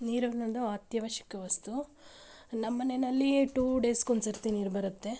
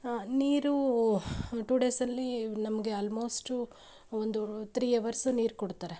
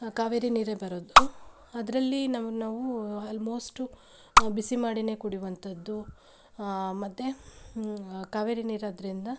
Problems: background sounds at intervals